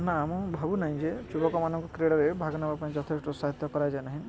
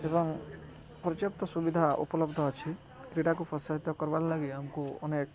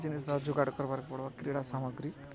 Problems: low volume